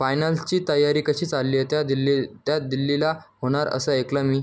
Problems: background conversations at intervals